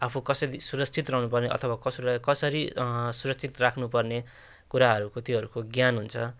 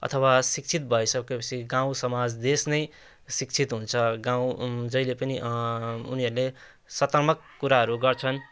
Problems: none marked